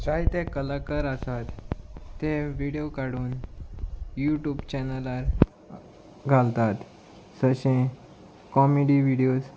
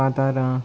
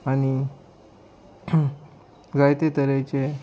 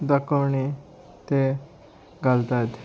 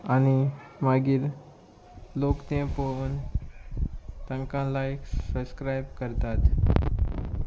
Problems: constant background noise